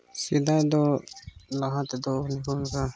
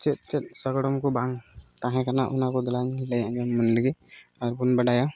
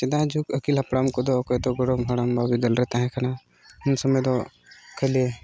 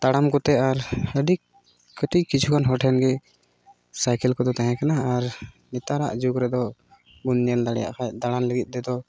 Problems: none marked